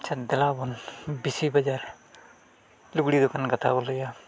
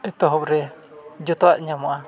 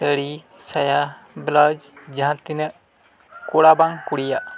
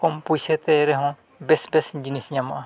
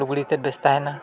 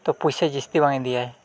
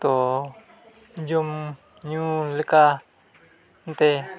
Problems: background sounds at intervals, continuous background conversations